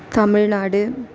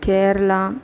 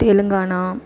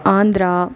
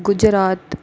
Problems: background conversations at intervals, echo